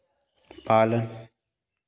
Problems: none marked